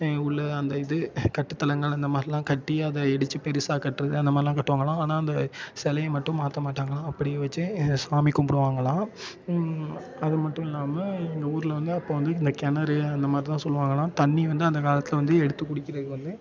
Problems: constant background noise, continuous background conversations